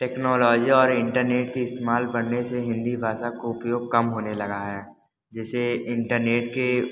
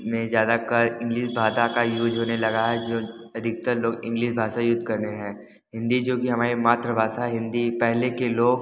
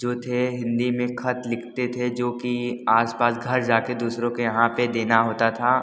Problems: constant background noise, background conversations at intervals